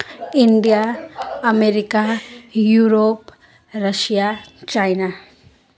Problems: none marked